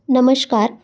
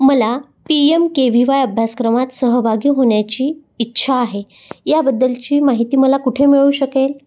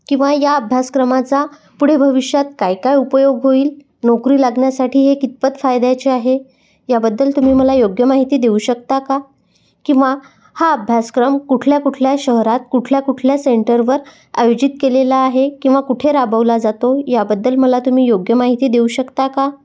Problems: none marked